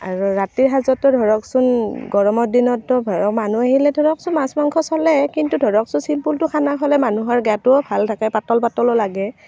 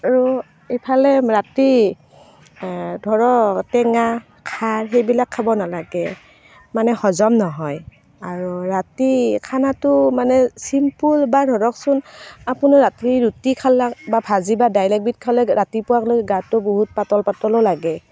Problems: constant background noise